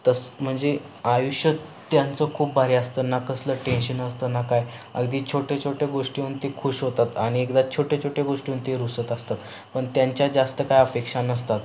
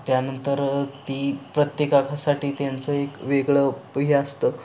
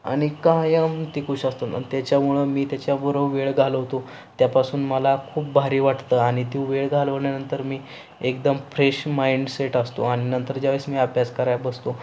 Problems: constant background noise